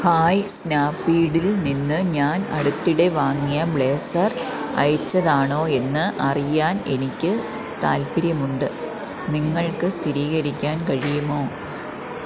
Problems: constant background noise, low volume